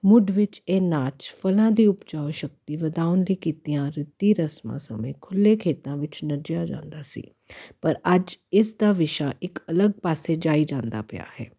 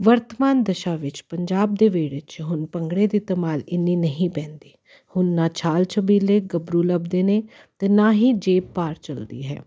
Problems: constant background noise